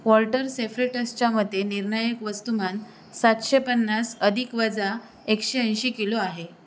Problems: constant background noise